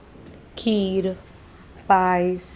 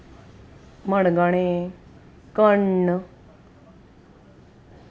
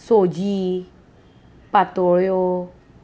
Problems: constant background noise